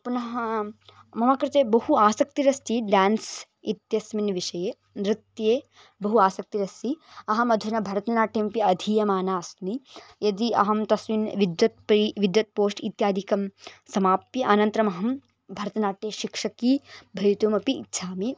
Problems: background sounds at intervals